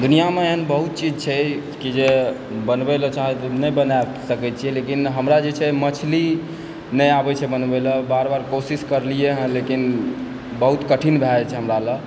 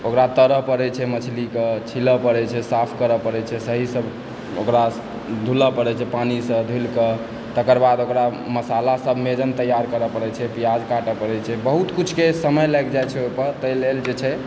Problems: constant background noise, background conversations at intervals